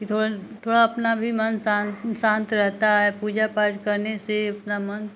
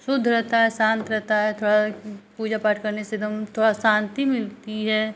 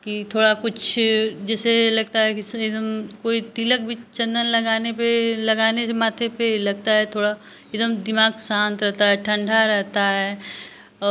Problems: constant background noise